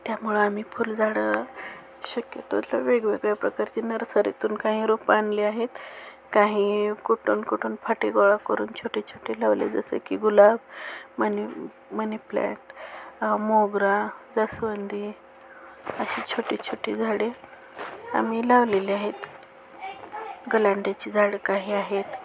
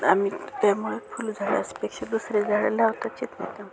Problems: constant background noise, continuous background conversations